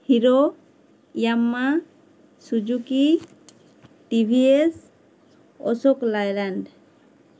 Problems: none marked